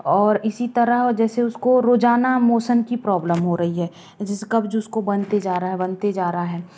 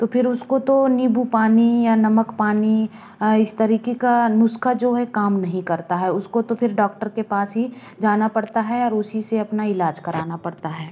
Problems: background sounds at intervals